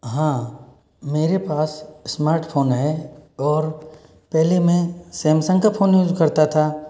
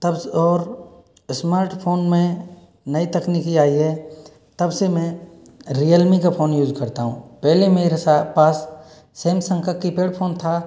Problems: background sounds at intervals